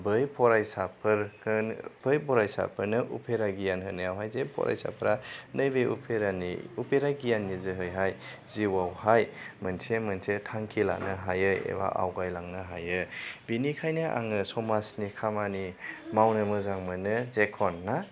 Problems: none marked